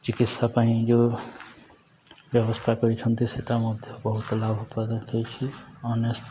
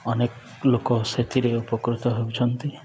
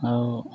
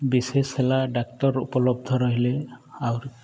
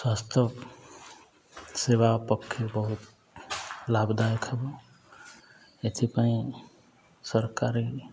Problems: none marked